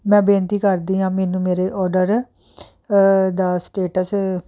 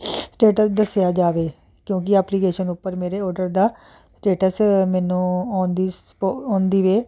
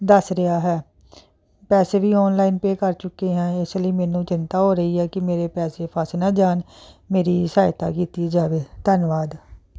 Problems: constant background noise